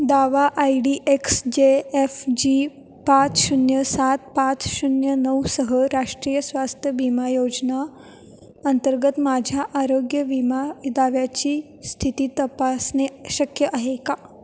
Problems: constant background noise, echo